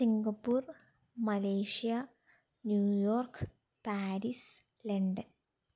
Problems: none marked